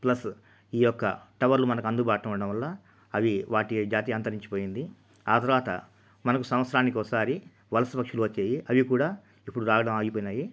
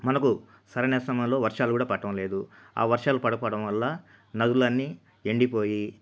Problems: constant background noise